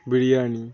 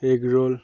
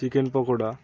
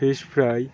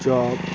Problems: background sounds at intervals